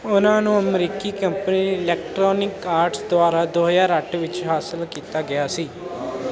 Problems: none marked